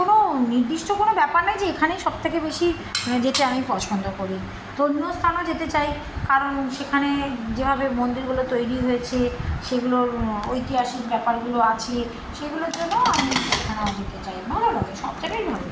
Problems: none marked